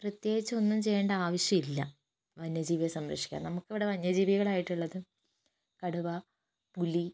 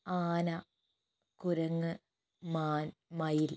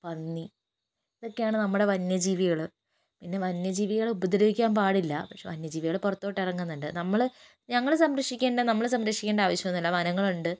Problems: low volume